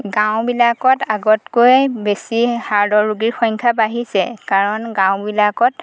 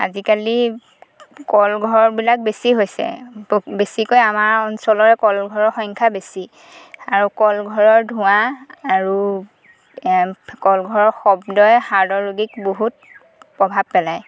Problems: constant background noise